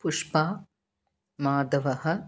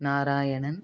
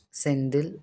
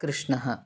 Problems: none marked